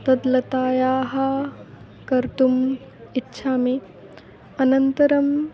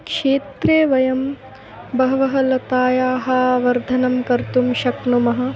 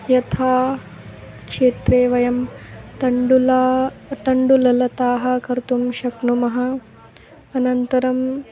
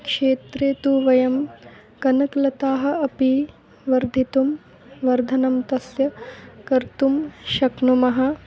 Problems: background sounds at intervals